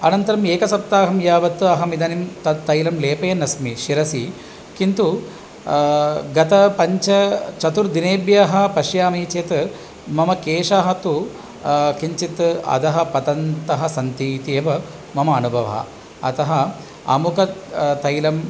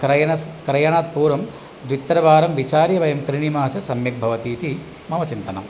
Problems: none marked